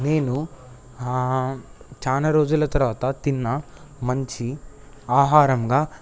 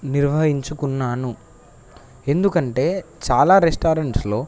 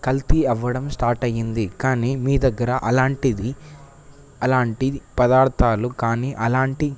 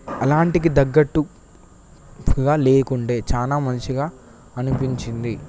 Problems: constant background noise